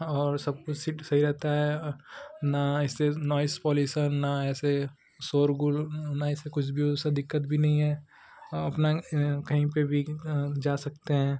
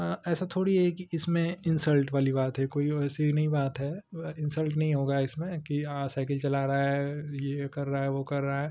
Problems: constant background noise